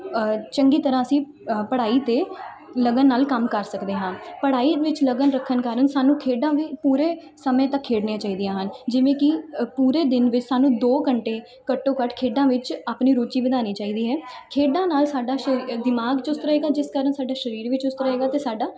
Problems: continuous background conversations